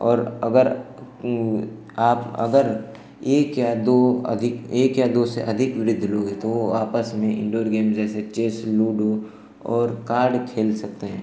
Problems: none marked